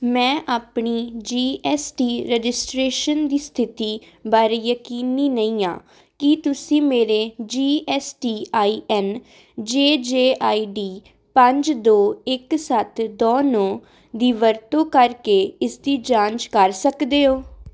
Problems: none marked